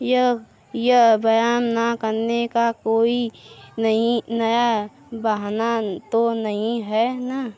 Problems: none marked